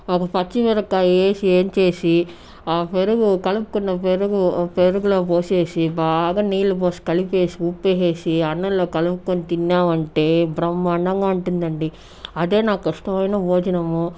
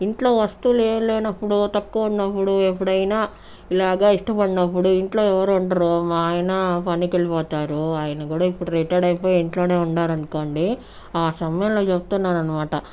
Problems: background sounds at intervals